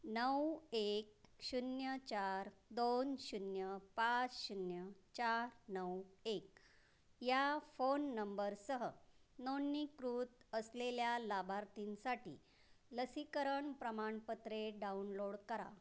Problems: constant background noise